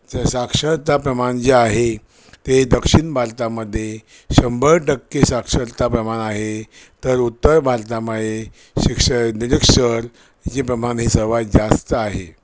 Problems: none marked